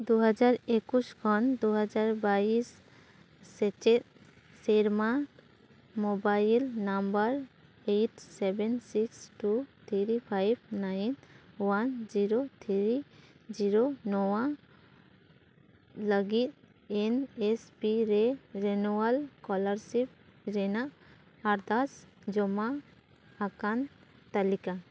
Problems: constant background noise